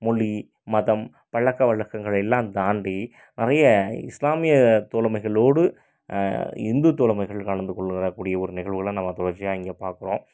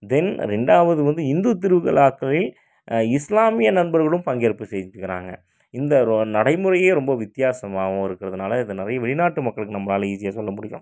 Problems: none marked